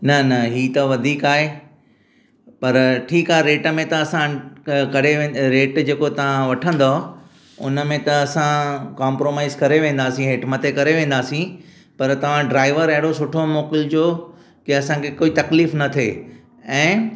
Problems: echo